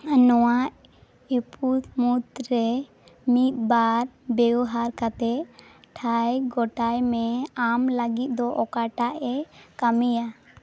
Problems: background sounds at intervals